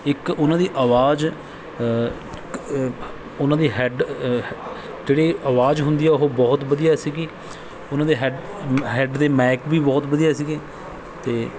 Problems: background sounds at intervals